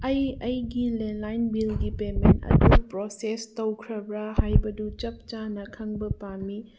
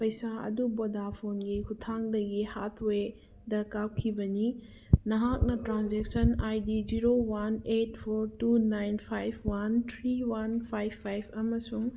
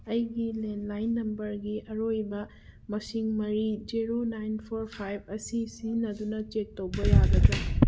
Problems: background sounds at intervals